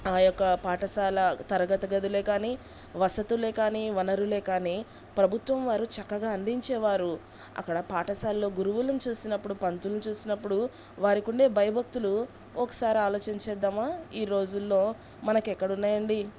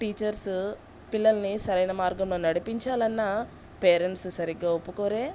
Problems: background sounds at intervals